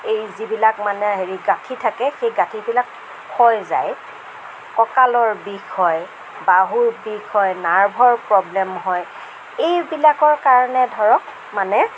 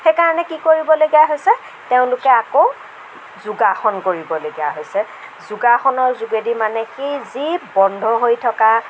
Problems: none marked